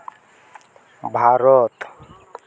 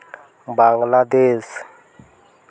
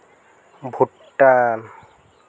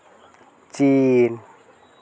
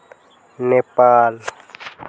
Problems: none marked